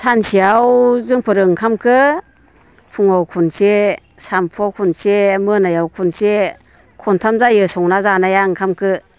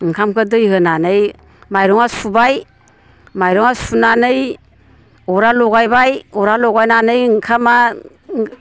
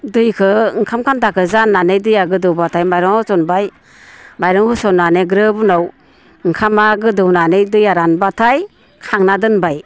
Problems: constant background noise